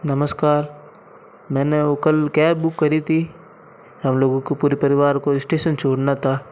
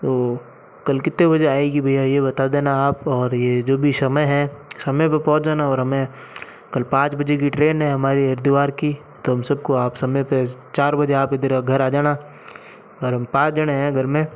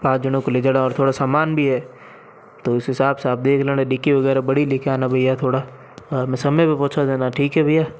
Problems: none marked